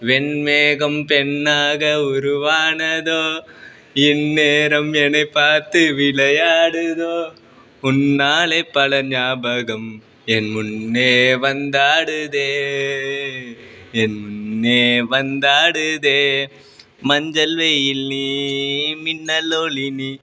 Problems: constant background noise, continuous background conversations